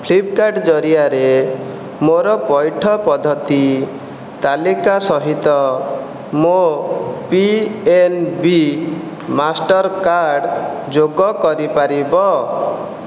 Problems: none marked